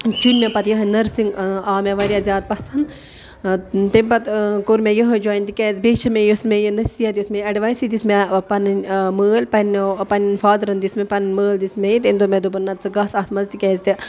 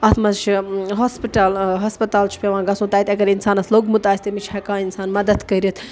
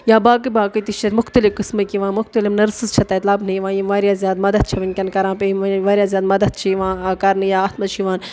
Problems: none marked